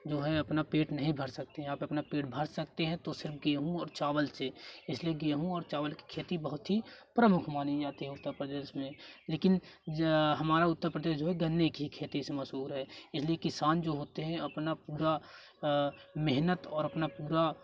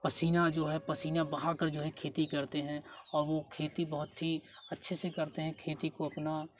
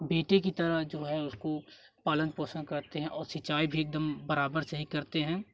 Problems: none marked